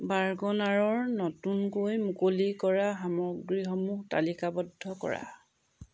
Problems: none marked